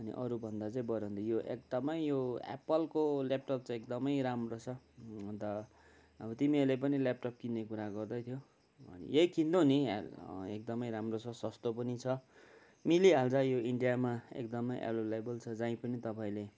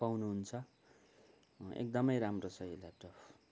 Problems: none marked